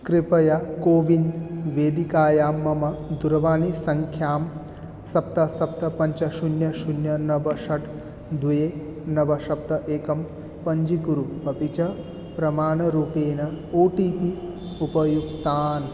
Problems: background sounds at intervals